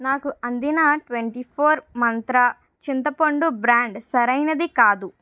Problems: none marked